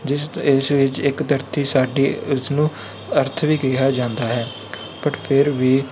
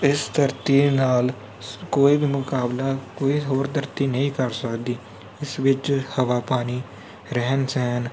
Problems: background sounds at intervals